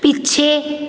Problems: background sounds at intervals